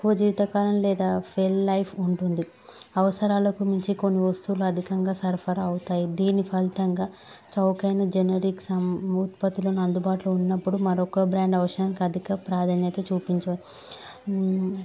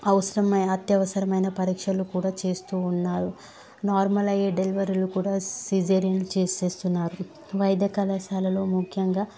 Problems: background sounds at intervals